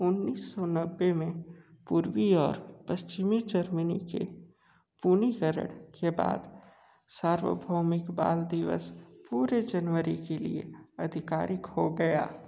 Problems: low volume